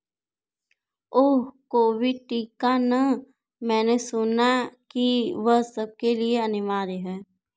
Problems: none marked